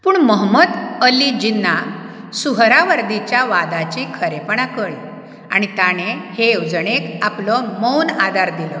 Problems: background sounds at intervals